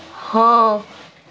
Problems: constant background noise